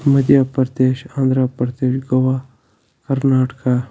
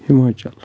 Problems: constant background noise